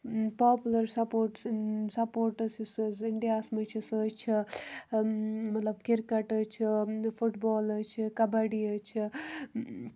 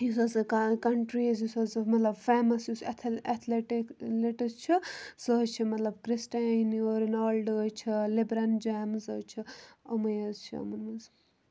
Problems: background sounds at intervals